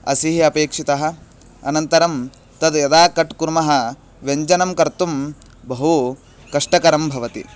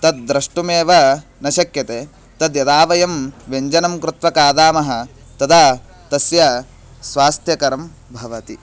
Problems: constant background noise